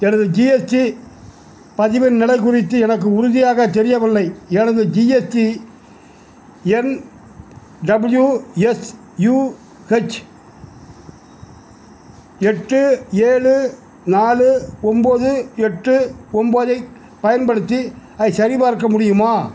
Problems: none marked